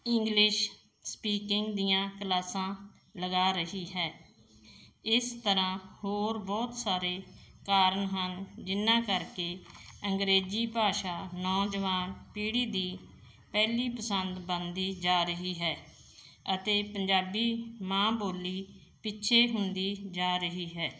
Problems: none marked